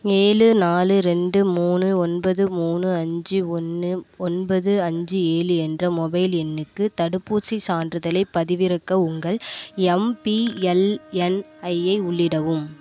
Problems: none marked